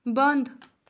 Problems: none marked